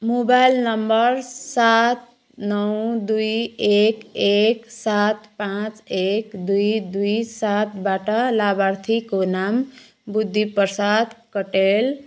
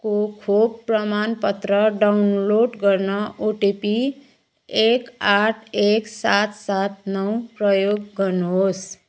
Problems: background sounds at intervals